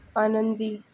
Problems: constant background noise